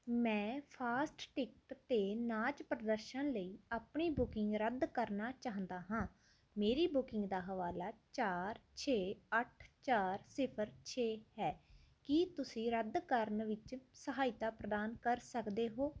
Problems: none marked